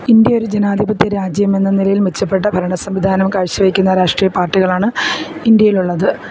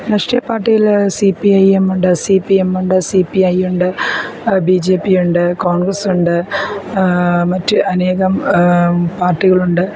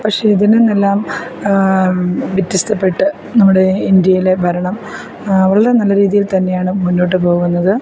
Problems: none marked